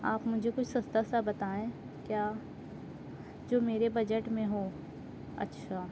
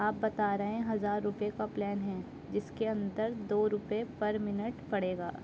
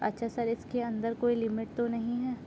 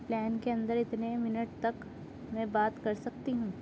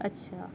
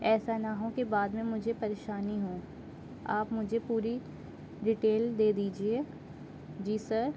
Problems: constant background noise